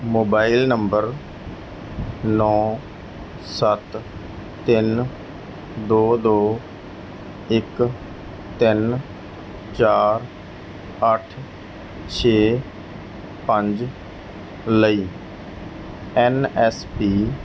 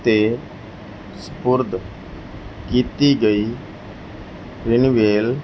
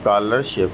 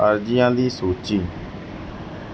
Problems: background sounds at intervals